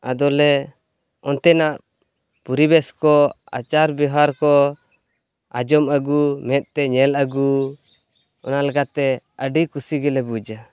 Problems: none marked